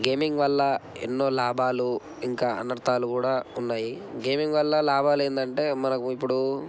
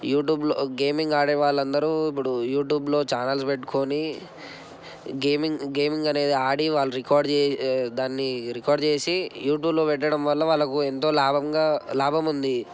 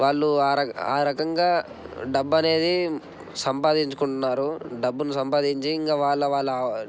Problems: none marked